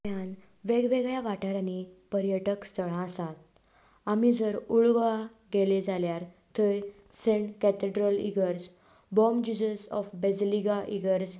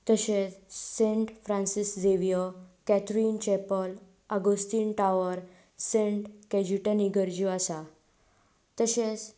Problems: background sounds at intervals